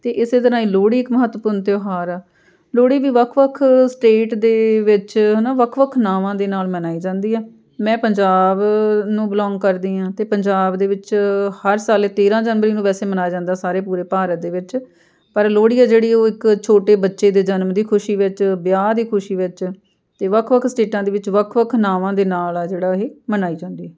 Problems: background sounds at intervals, continuous background conversations